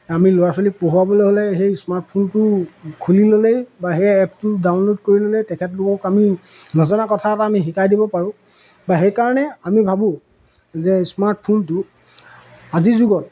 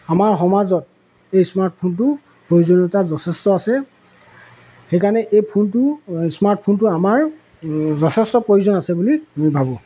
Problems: background sounds at intervals